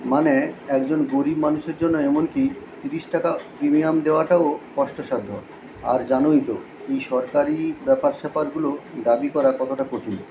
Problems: constant background noise